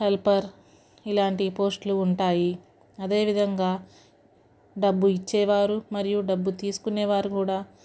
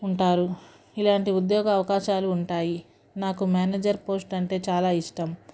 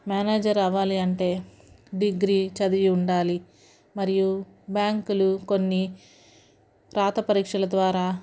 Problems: none marked